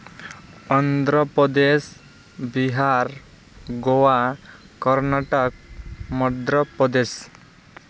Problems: constant background noise